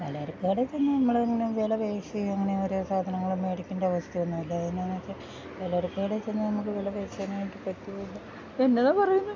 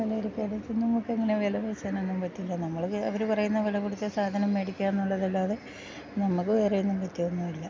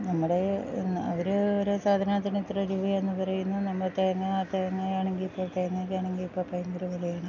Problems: none marked